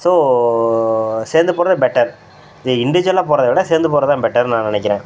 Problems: background sounds at intervals